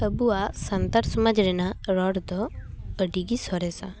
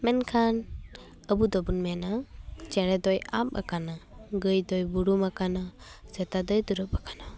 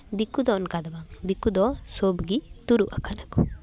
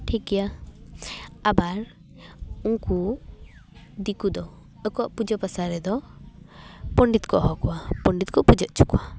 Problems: background sounds at intervals, background conversations at intervals